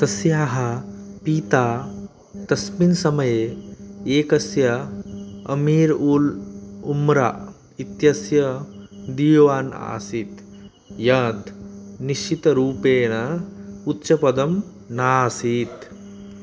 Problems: constant background noise